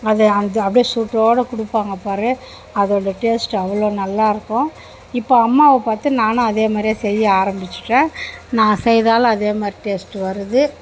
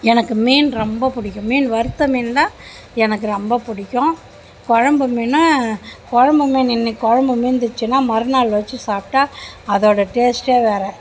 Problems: background conversations at intervals